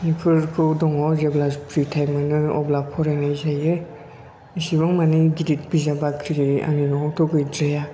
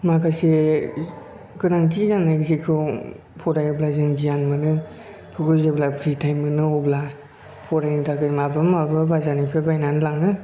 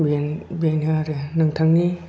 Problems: background sounds at intervals